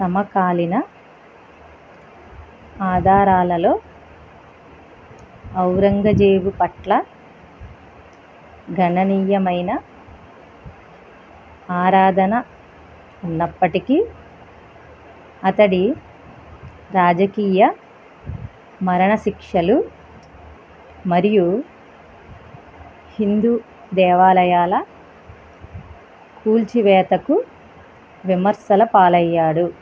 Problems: constant background noise